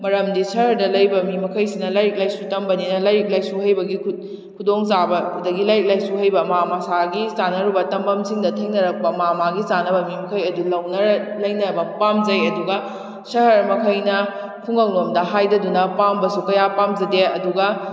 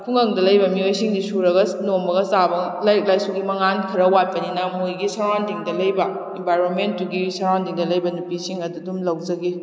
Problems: echo